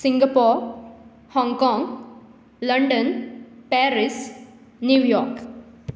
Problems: none marked